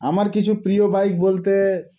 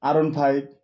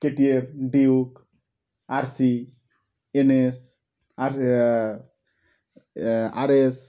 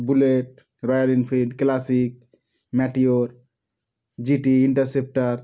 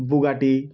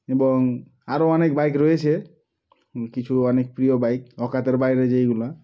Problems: none marked